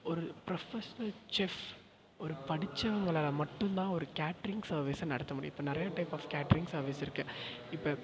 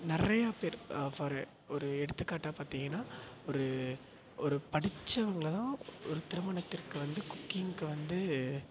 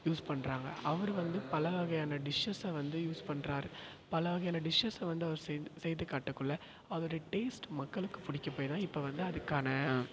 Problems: echo